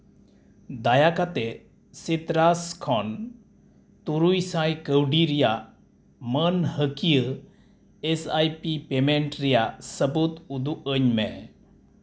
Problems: none marked